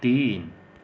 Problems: constant background noise